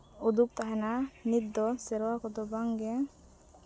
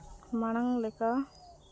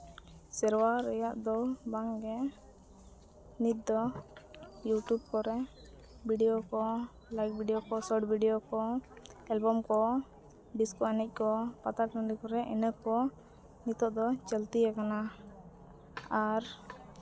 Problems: none marked